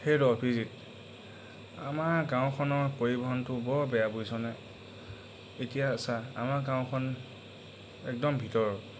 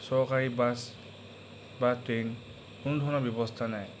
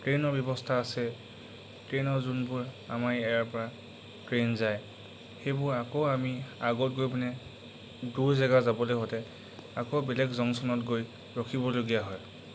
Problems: constant background noise